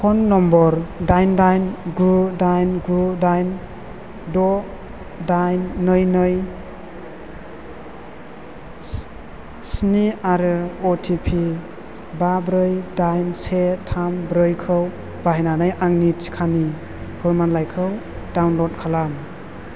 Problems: constant background noise